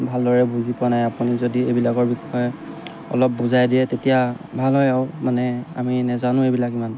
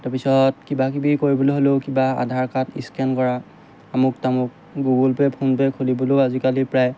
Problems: background sounds at intervals